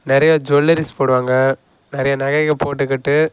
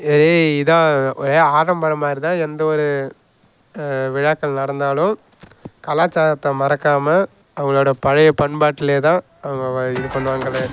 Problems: none marked